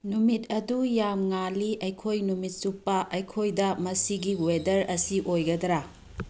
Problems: background sounds at intervals